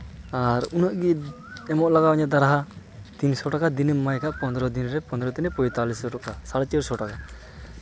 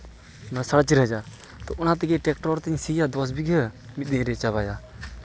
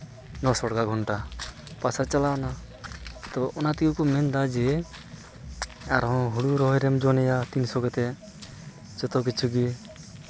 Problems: constant background noise